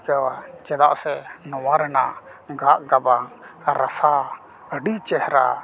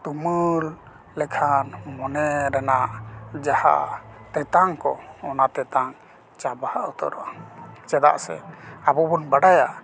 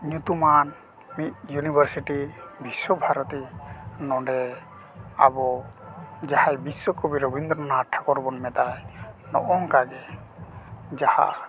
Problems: constant background noise